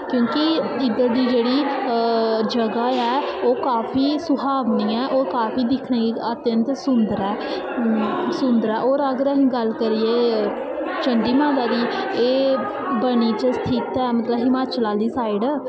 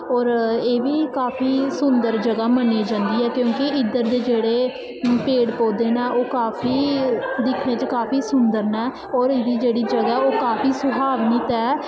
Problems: constant background noise, echo